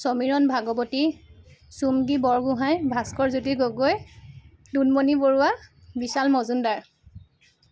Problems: none marked